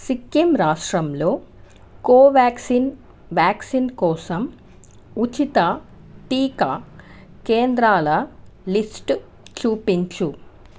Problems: constant background noise